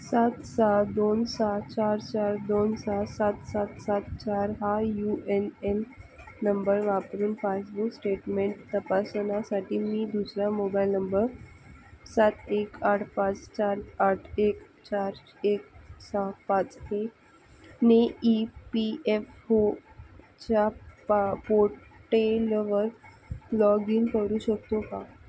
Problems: constant background noise